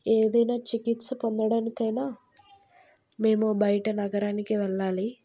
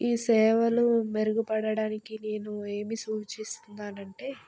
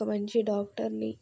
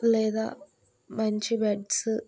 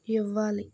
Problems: none marked